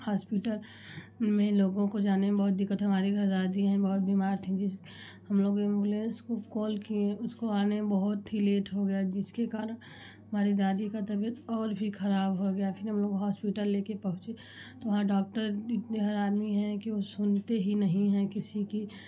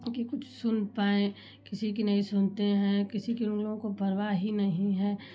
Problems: constant background noise